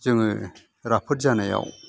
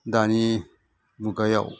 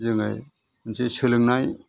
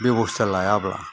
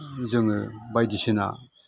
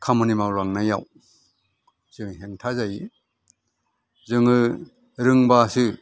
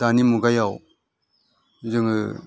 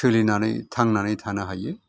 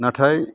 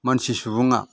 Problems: none marked